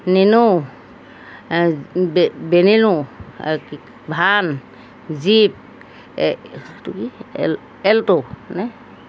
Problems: none marked